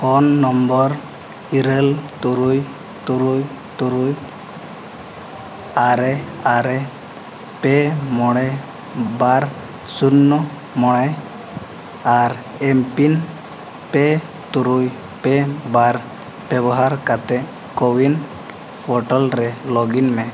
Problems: none marked